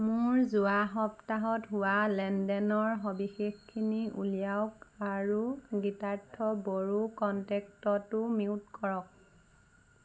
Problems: constant background noise